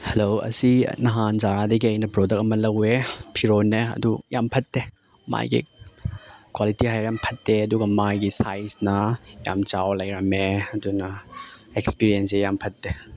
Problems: none marked